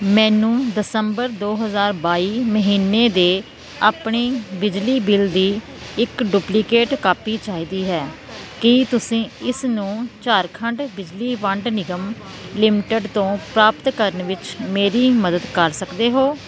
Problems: constant background noise